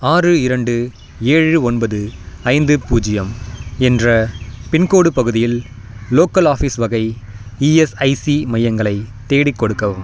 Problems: constant background noise